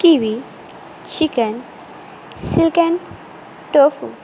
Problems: constant background noise